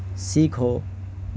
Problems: constant background noise